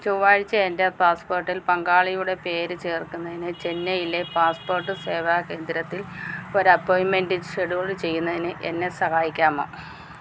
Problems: background sounds at intervals